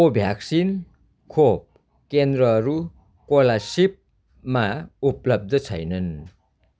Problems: background sounds at intervals